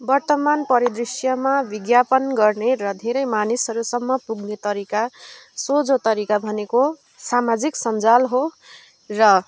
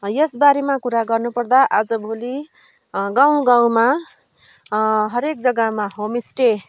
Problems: constant background noise